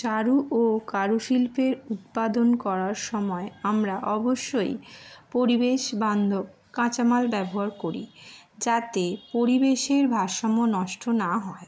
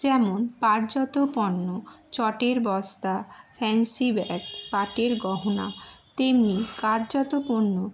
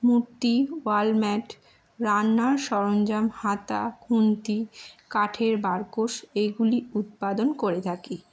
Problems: constant background noise